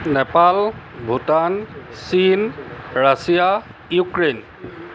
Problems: background conversations at intervals